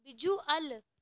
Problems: none marked